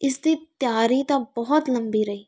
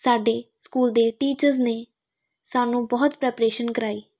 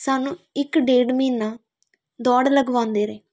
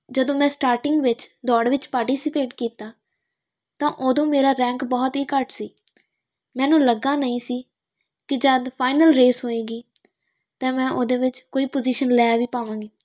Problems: none marked